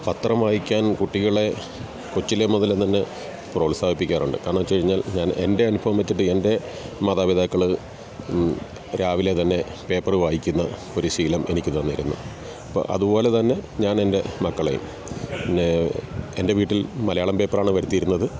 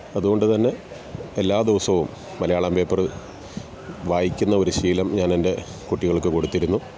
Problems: none marked